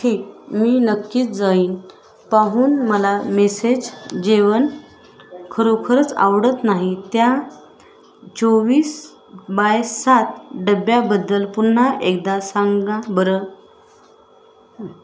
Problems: constant background noise, background conversations at intervals